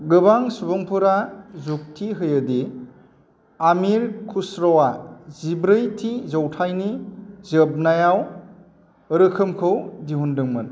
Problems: constant background noise